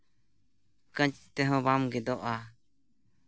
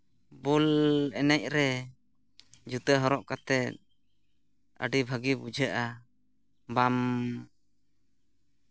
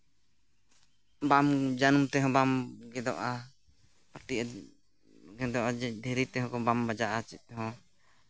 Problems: background sounds at intervals